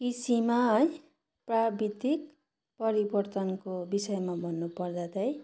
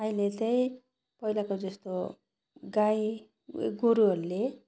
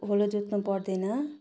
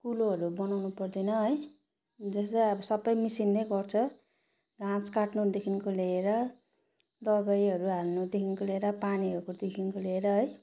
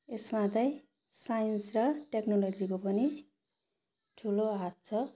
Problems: background sounds at intervals